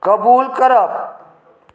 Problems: background sounds at intervals